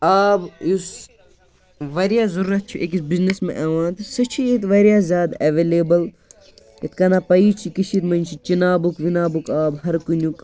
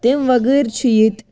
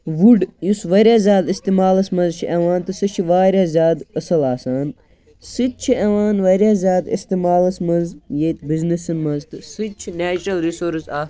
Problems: background conversations at intervals